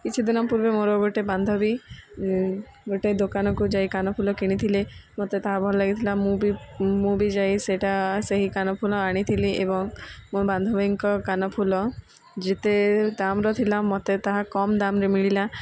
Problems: background sounds at intervals